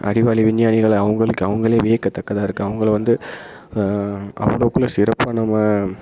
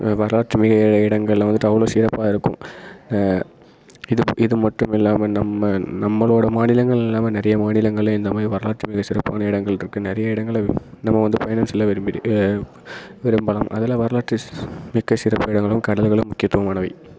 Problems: constant background noise